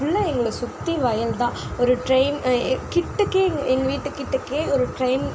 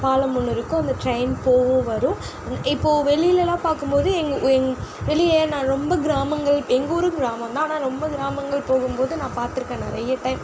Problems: constant background noise